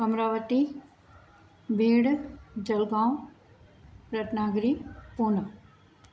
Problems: none marked